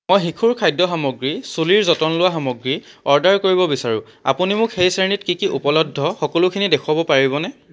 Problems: background sounds at intervals